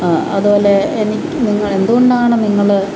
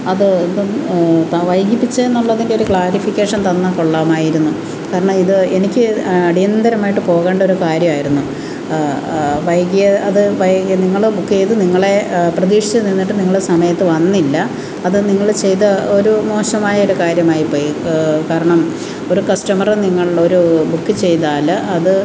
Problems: constant background noise